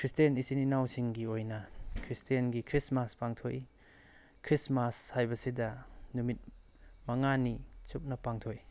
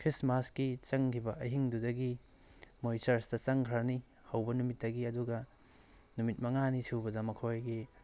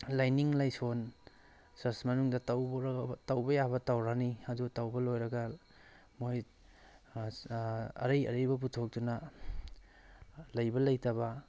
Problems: background sounds at intervals